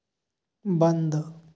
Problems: background sounds at intervals